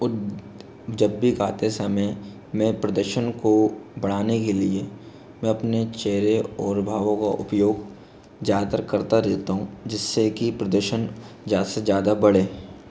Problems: none marked